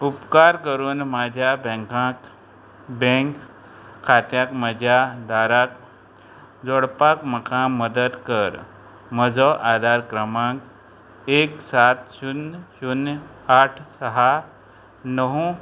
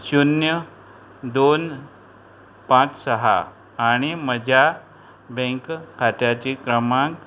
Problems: constant background noise